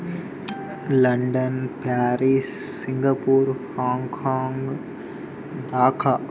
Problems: constant background noise